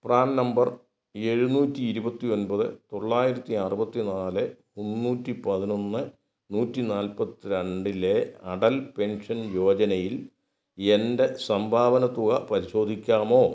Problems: none marked